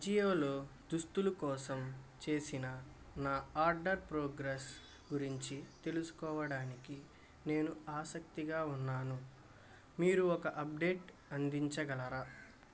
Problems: constant background noise